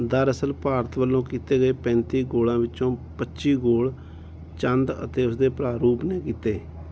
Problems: none marked